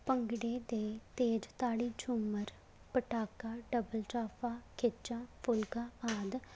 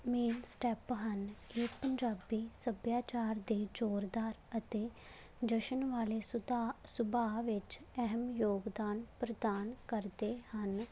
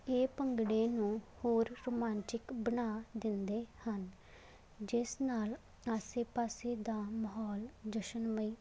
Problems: background sounds at intervals